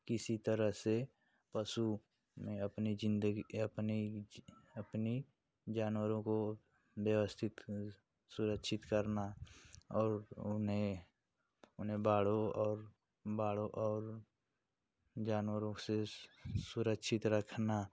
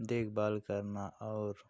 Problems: constant background noise